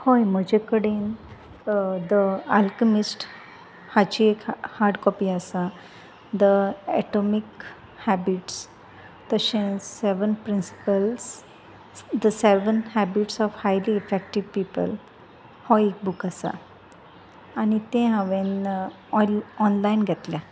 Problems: background sounds at intervals, background conversations at intervals